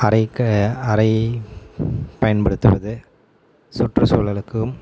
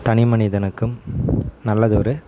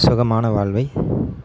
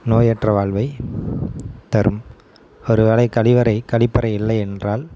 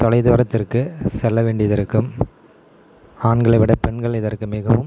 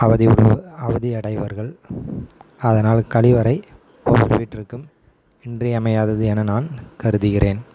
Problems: constant background noise